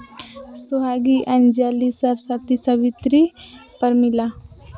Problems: constant background noise, background conversations at intervals